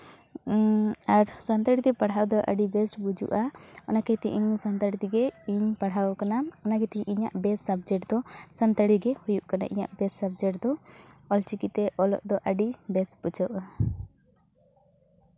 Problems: none marked